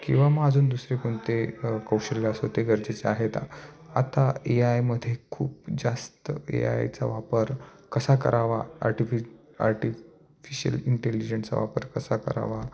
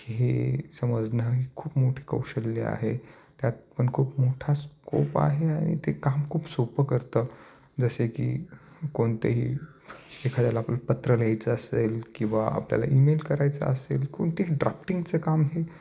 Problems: none marked